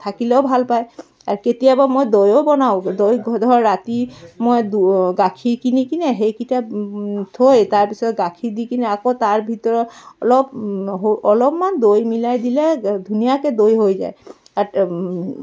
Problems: background sounds at intervals, continuous background conversations